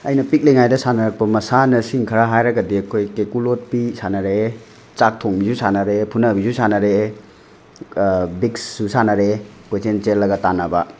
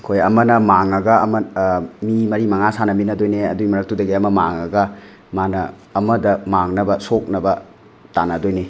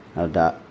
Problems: background sounds at intervals